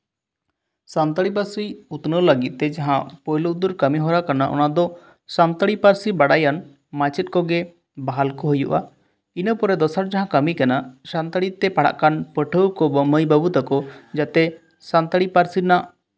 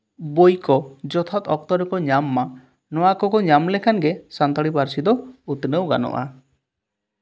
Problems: none marked